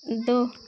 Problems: constant background noise